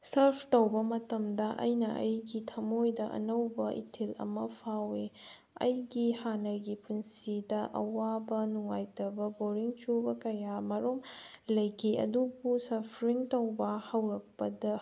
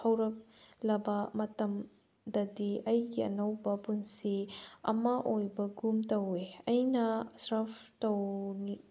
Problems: background sounds at intervals